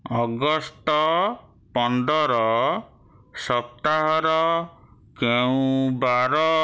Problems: none marked